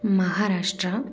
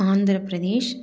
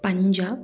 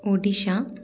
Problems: background sounds at intervals, background conversations at intervals